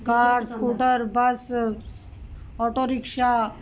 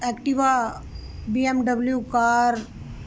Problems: constant background noise